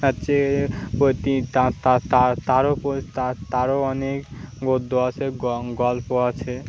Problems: constant background noise